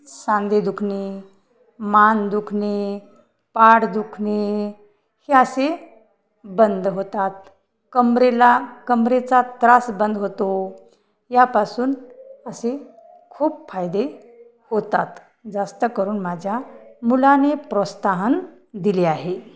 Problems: none marked